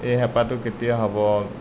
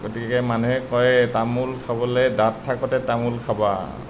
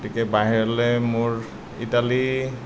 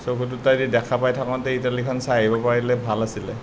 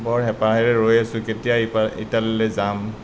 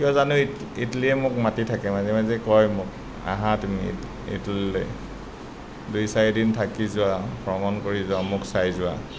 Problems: none marked